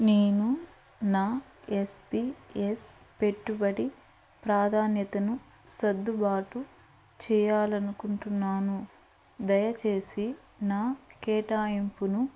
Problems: background sounds at intervals